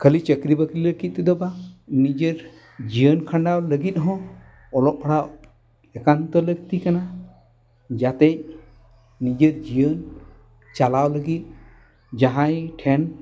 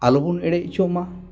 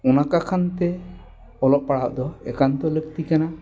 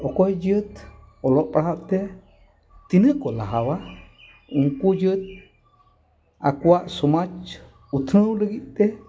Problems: background conversations at intervals